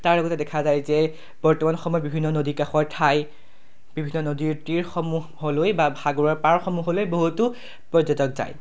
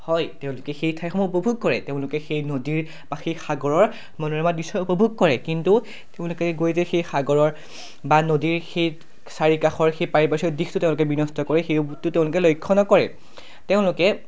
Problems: none marked